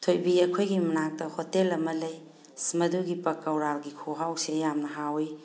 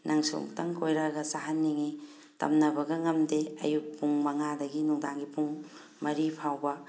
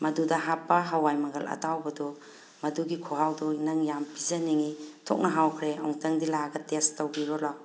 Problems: background sounds at intervals